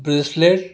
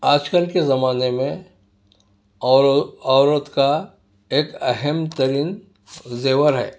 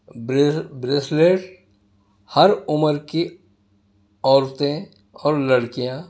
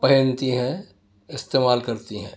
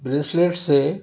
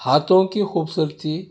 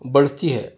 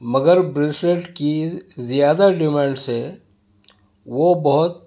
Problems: none marked